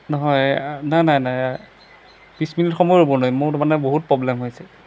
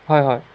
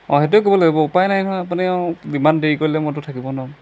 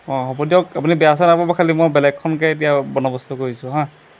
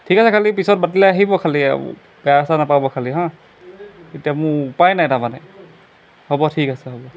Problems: background sounds at intervals